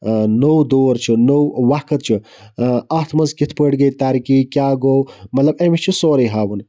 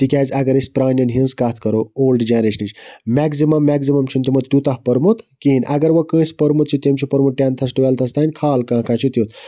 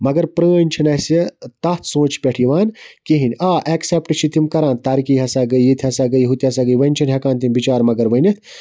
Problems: none marked